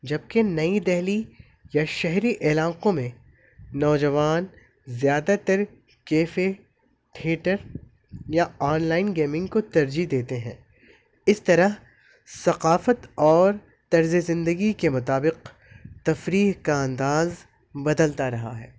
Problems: constant background noise